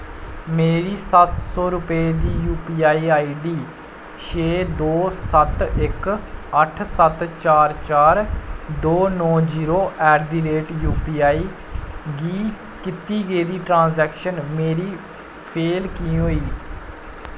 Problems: constant background noise